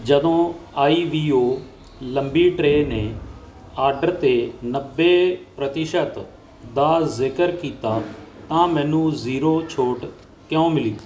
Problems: constant background noise